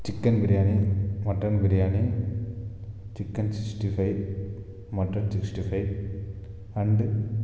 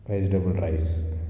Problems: none marked